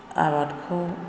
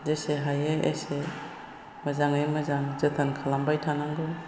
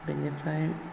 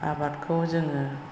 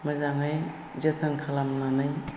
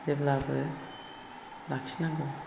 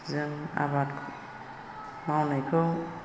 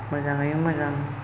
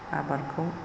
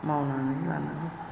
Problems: constant background noise